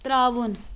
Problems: constant background noise